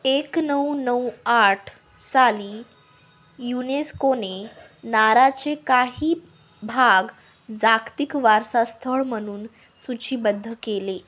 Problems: none marked